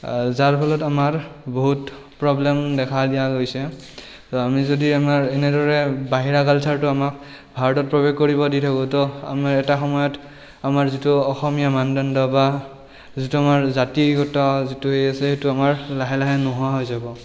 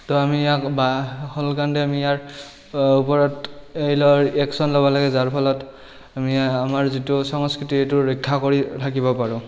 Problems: background sounds at intervals